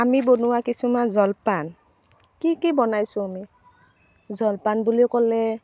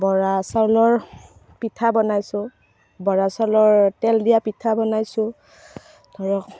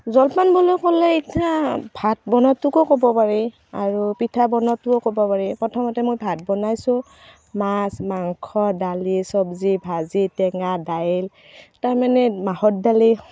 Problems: constant background noise